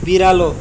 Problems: constant background noise